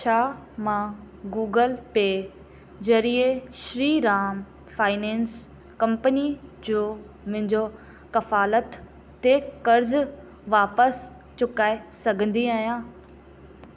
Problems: constant background noise, echo